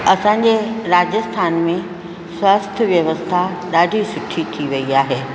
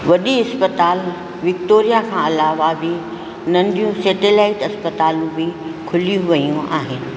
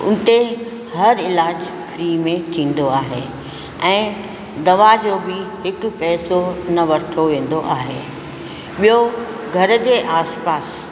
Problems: constant background noise, echo